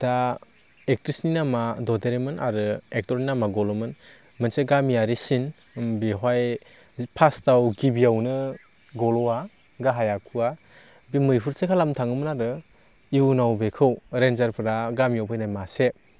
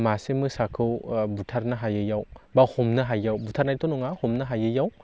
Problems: low volume